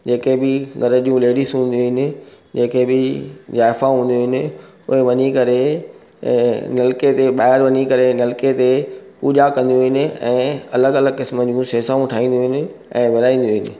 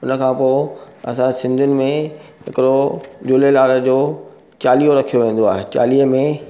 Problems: none marked